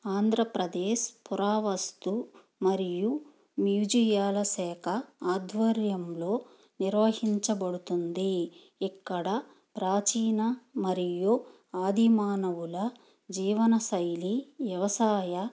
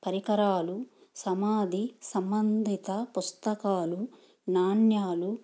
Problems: background sounds at intervals